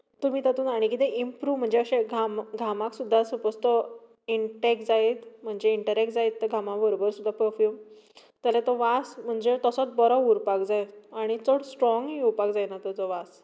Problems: background sounds at intervals